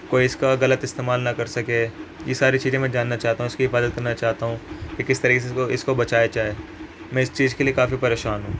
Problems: constant background noise